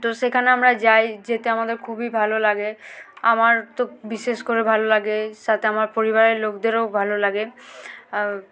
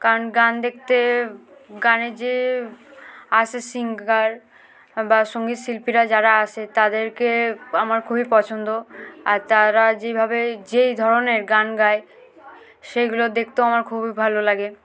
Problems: constant background noise, background conversations at intervals